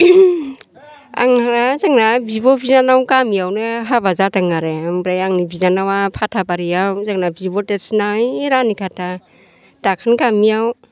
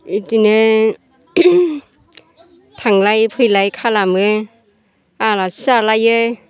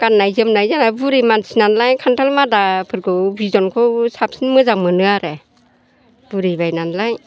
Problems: constant background noise